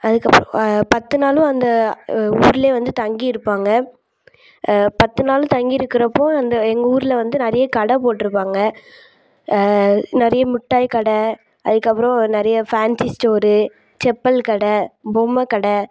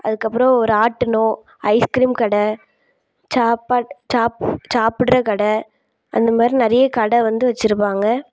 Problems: background sounds at intervals